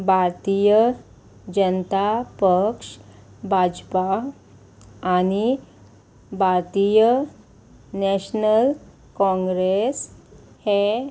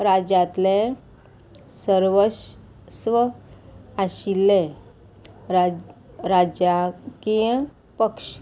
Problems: constant background noise